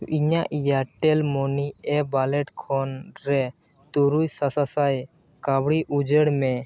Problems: background sounds at intervals